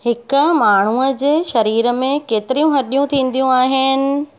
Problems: constant background noise